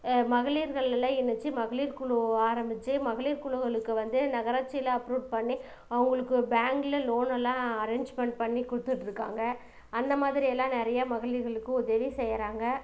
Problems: none marked